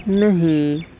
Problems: constant background noise